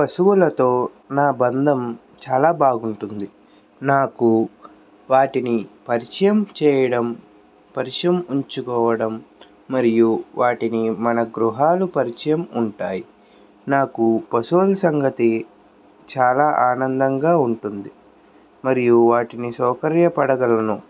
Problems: none marked